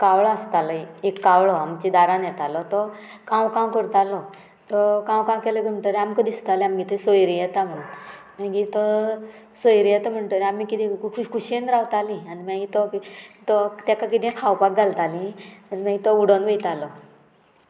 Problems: none marked